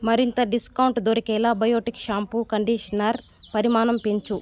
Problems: constant background noise, background conversations at intervals